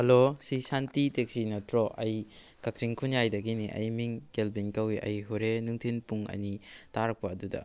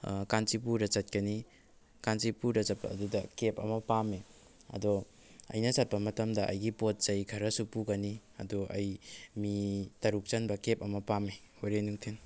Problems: background sounds at intervals